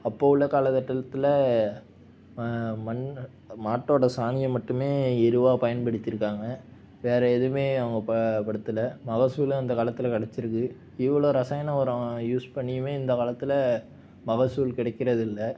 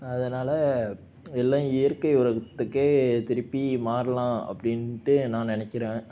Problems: none marked